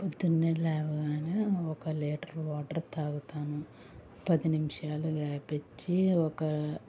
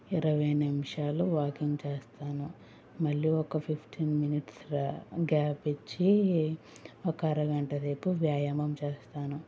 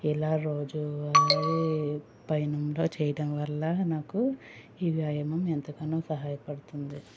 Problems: background sounds at intervals